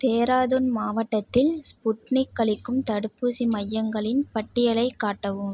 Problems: none marked